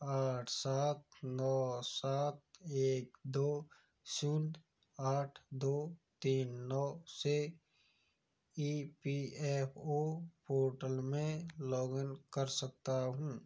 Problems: background sounds at intervals